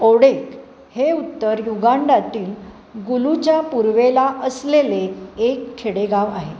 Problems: constant background noise